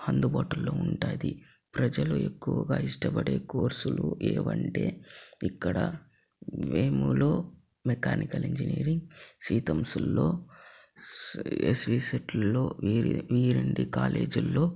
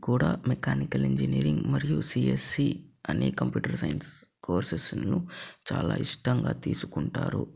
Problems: low volume